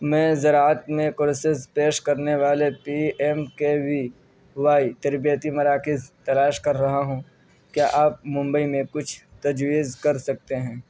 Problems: background sounds at intervals, low volume